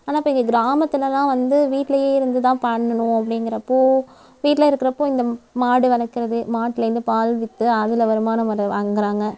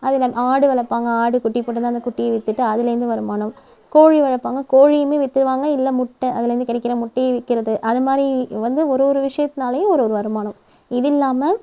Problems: background sounds at intervals